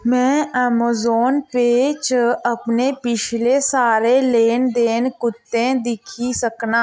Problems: none marked